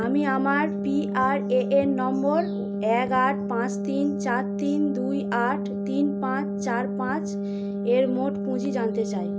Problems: constant background noise